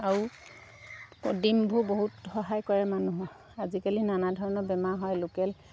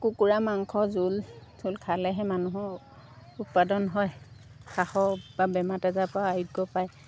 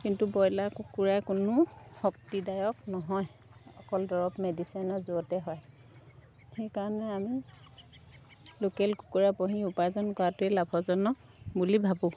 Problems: none marked